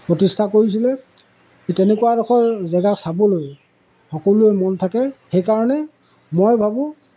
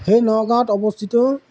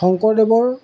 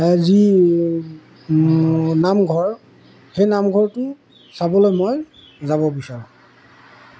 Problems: background sounds at intervals, background conversations at intervals